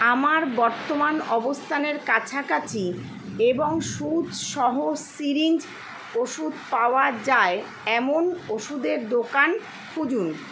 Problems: none marked